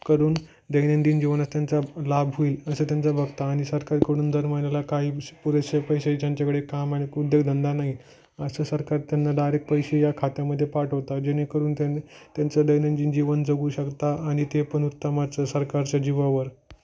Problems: background sounds at intervals